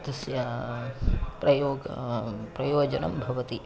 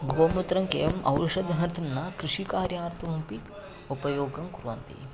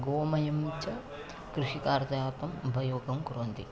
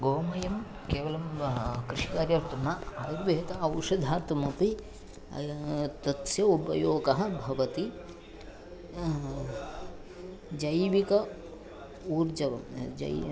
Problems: background conversations at intervals, low volume